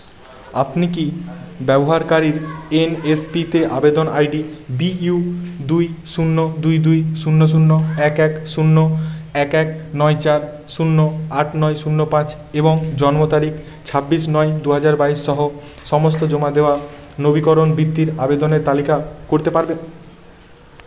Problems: constant background noise, continuous background conversations